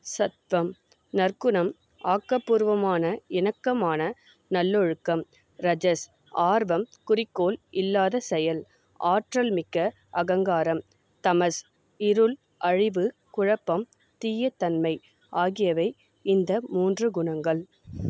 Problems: none marked